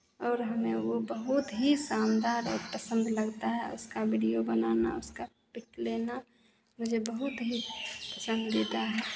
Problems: none marked